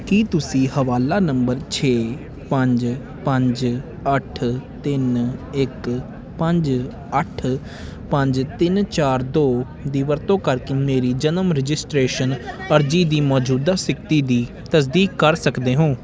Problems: continuous background conversations